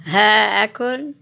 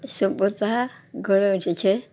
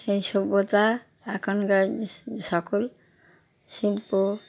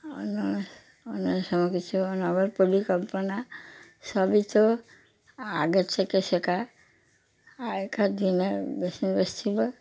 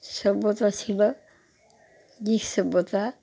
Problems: background sounds at intervals, background conversations at intervals